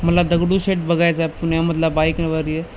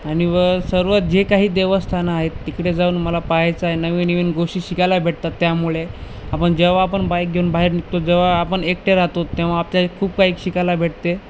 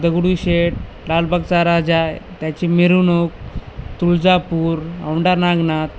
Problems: none marked